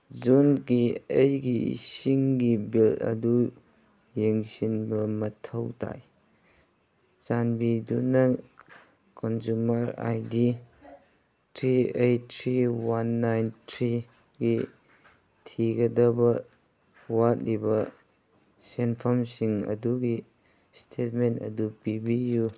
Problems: background sounds at intervals